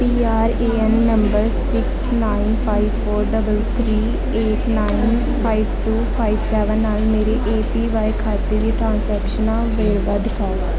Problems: constant background noise